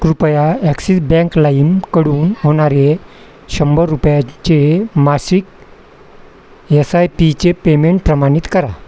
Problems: constant background noise, background conversations at intervals